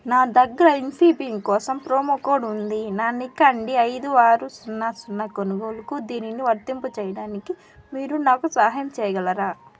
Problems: constant background noise